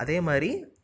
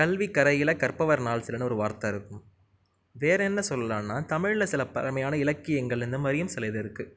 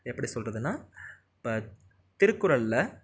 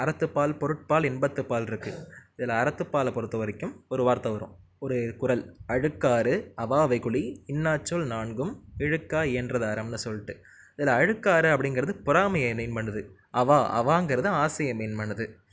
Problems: none marked